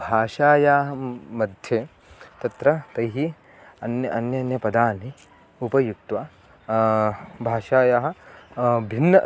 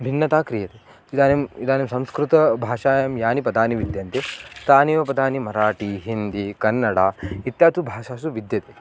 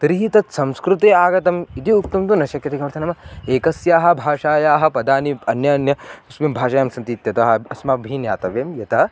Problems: constant background noise